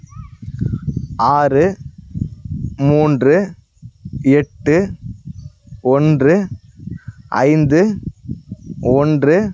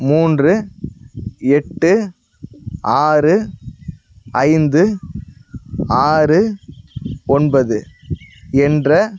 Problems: none marked